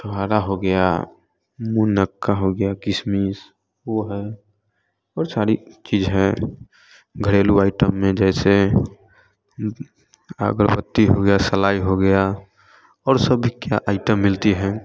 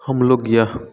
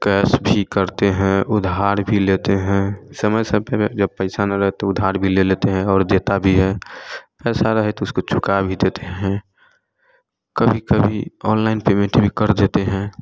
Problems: constant background noise, continuous background conversations